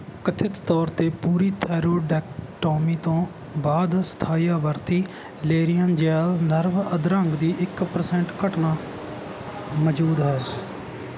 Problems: none marked